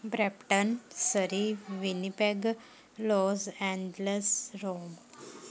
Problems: continuous background conversations